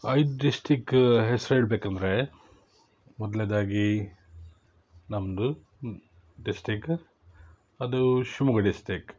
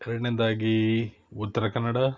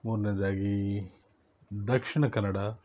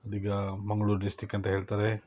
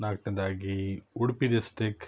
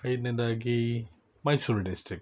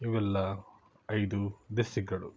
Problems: none marked